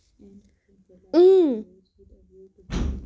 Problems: background sounds at intervals